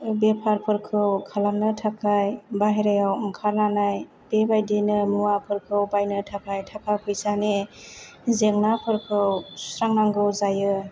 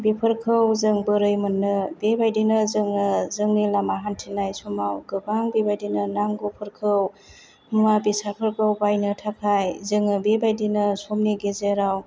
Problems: none marked